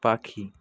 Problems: constant background noise